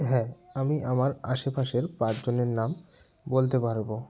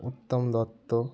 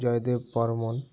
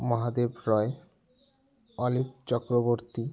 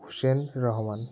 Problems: background sounds at intervals, background conversations at intervals